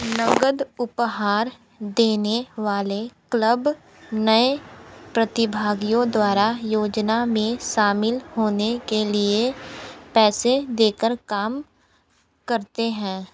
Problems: none marked